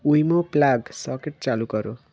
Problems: constant background noise